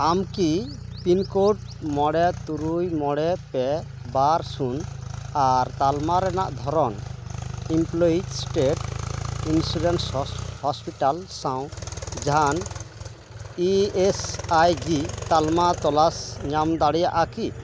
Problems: constant background noise